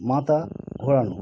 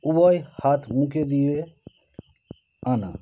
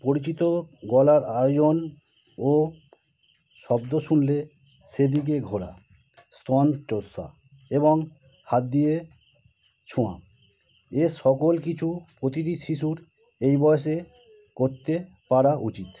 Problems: constant background noise